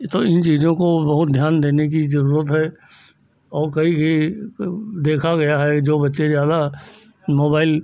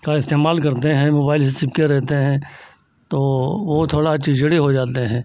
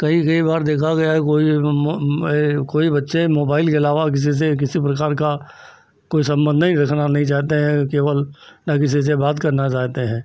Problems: none marked